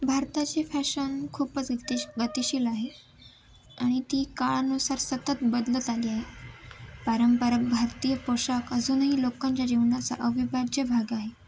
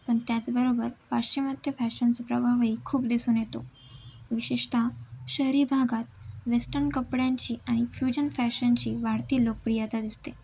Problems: background sounds at intervals